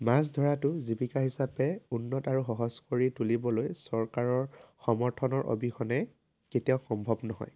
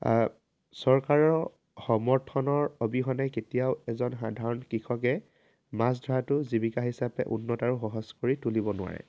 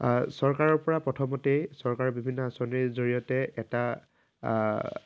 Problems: constant background noise